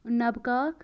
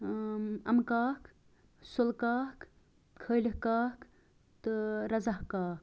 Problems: none marked